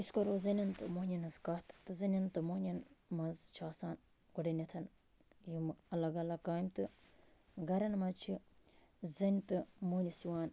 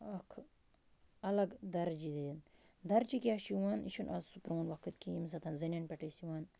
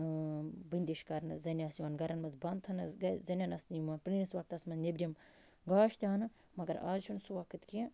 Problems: constant background noise